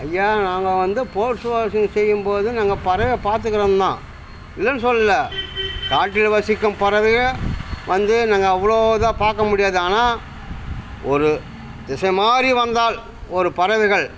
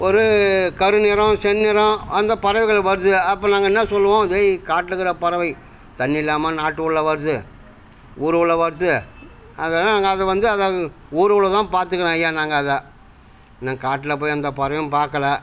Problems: constant background noise